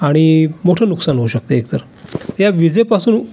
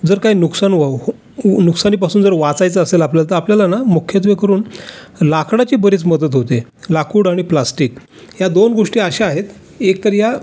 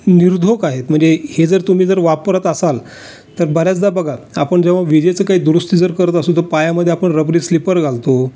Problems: none marked